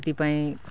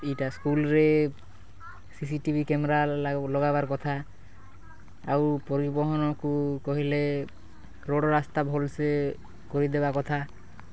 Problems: none marked